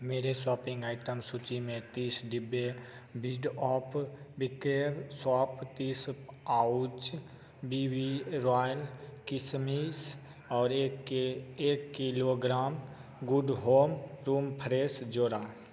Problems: constant background noise, echo